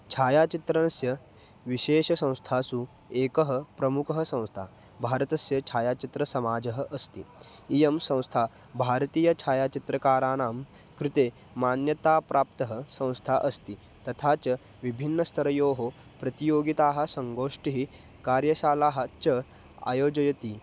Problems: background sounds at intervals